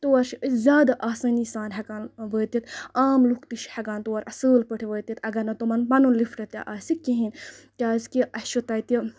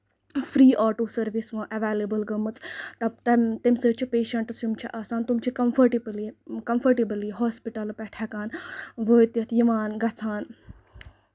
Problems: none marked